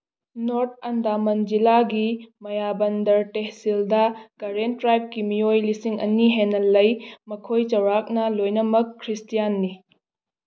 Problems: none marked